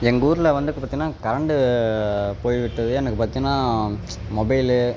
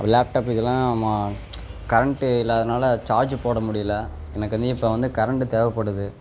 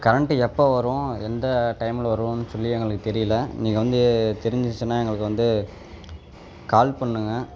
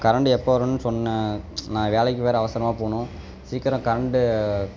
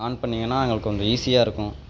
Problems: background sounds at intervals